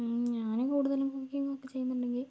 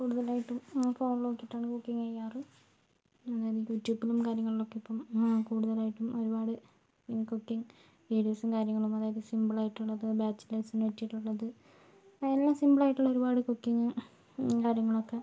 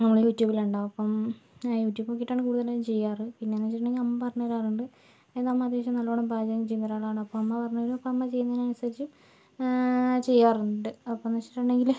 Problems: low volume